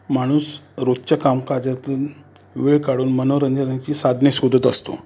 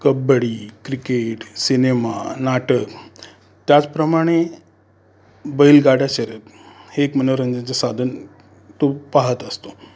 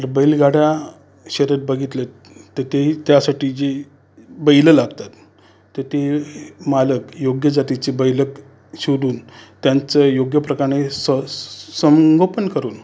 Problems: constant background noise, background conversations at intervals